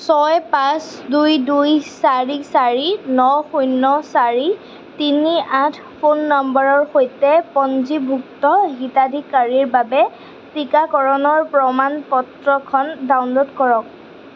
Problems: constant background noise